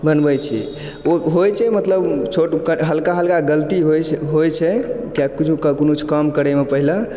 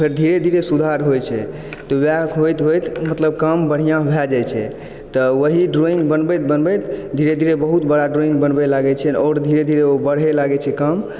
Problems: none marked